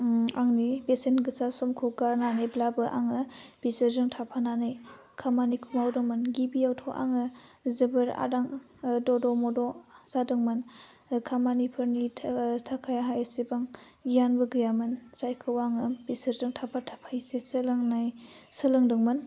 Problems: none marked